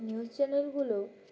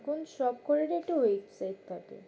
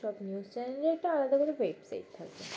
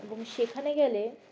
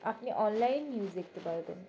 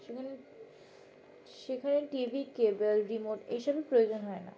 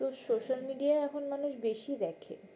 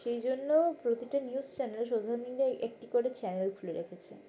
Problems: constant background noise